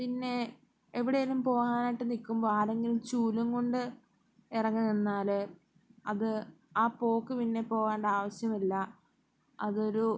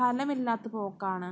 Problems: none marked